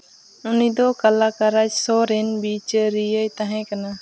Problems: background sounds at intervals